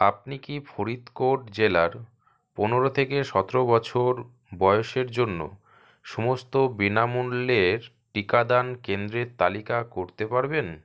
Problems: none marked